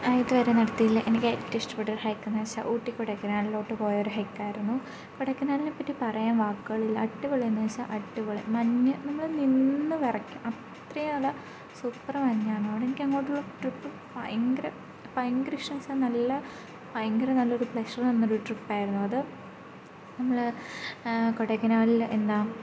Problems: low volume